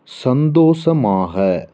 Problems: constant background noise